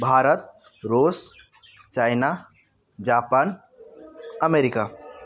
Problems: none marked